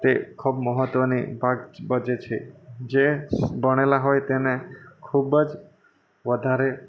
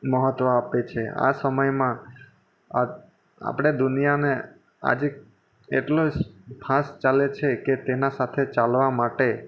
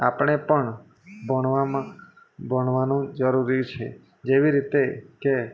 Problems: constant background noise